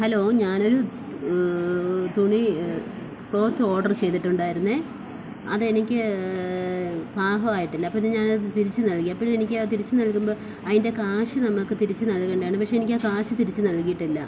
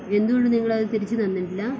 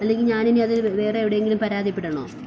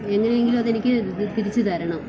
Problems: constant background noise